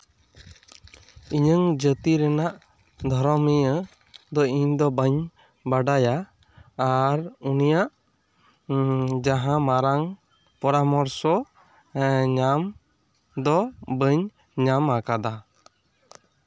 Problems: none marked